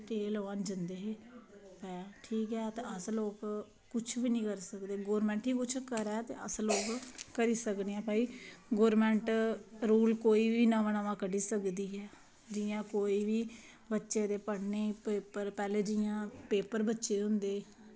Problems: constant background noise